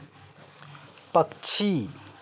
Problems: background sounds at intervals